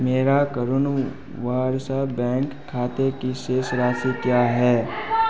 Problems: constant background noise, continuous background conversations